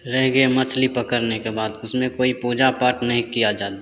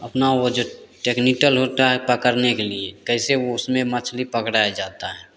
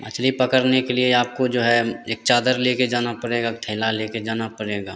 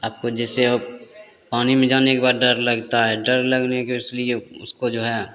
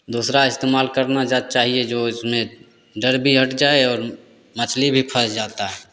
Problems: none marked